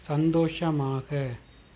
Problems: none marked